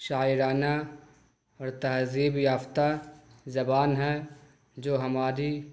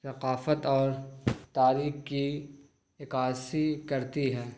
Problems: none marked